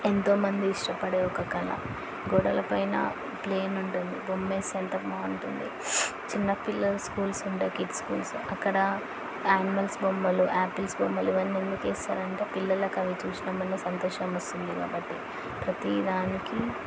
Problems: constant background noise